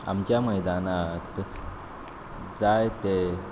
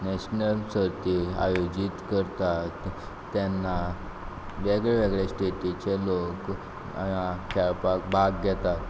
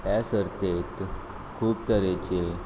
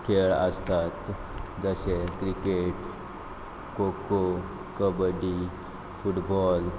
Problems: constant background noise